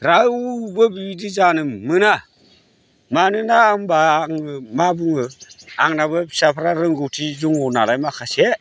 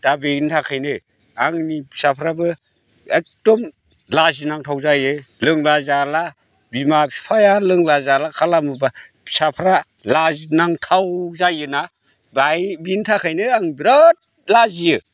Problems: none marked